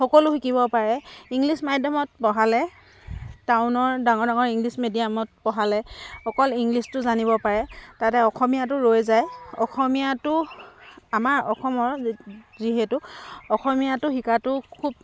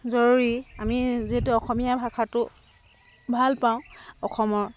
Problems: constant background noise, background conversations at intervals